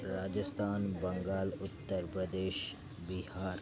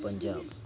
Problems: none marked